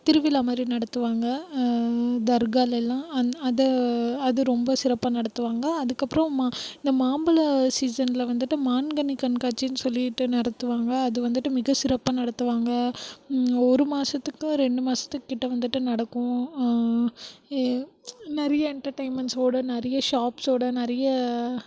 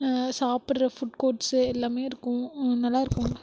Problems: background sounds at intervals, low volume